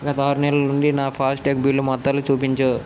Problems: constant background noise